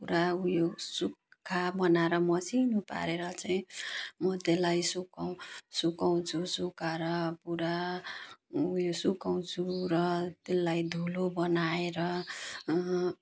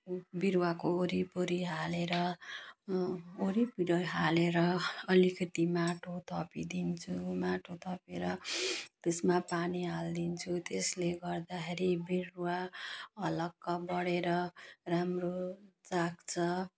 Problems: none marked